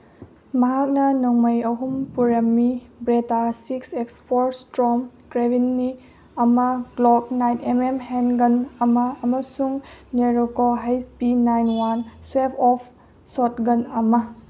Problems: background sounds at intervals